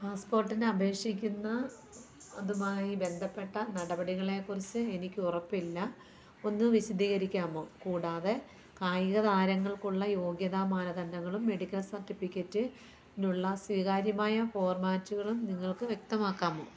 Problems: low volume